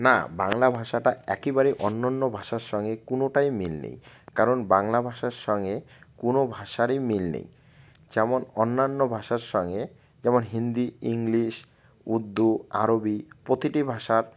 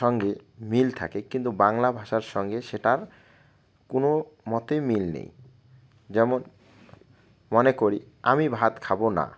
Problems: constant background noise